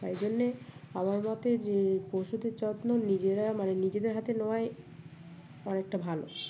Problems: constant background noise, background conversations at intervals